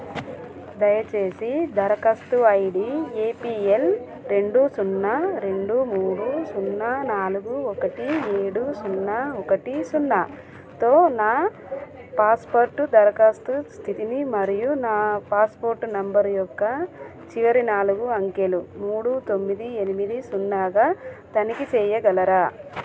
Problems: constant background noise